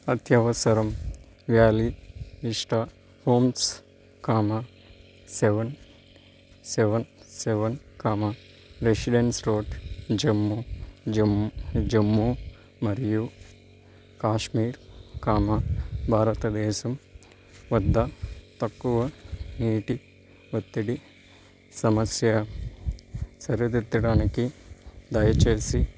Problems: constant background noise